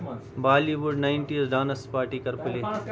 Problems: background sounds at intervals, continuous background conversations